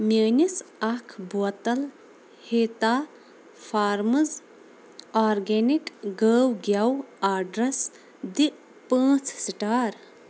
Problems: constant background noise